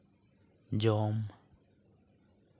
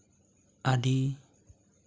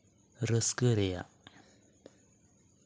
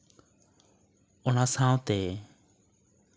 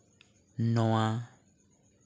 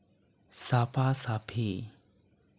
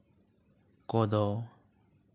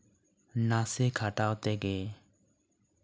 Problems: none marked